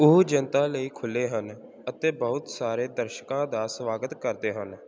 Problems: background sounds at intervals